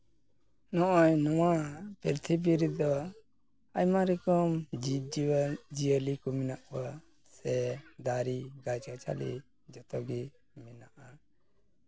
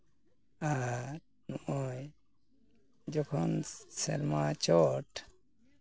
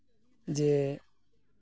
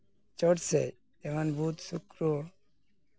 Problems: background sounds at intervals, continuous background conversations